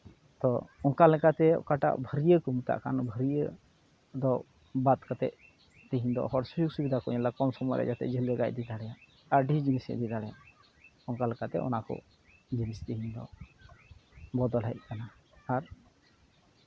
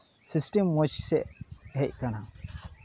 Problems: background sounds at intervals